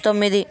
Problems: none marked